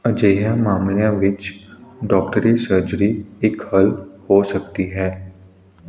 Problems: constant background noise